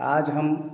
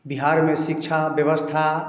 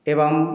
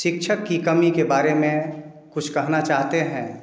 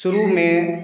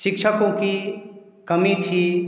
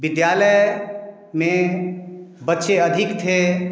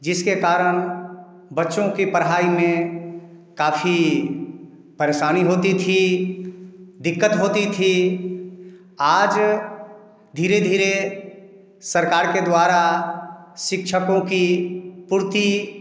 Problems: background sounds at intervals